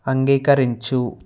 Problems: constant background noise